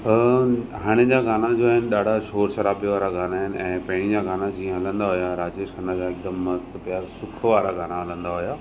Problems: constant background noise